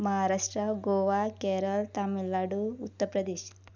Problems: low volume